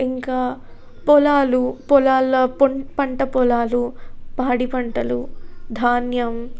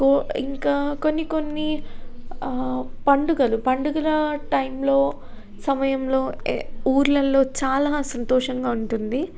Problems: none marked